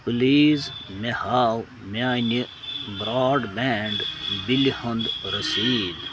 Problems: constant background noise